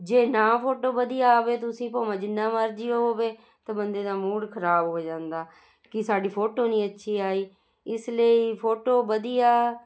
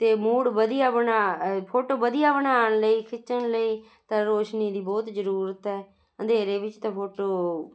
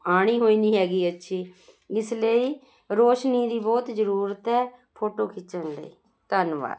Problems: constant background noise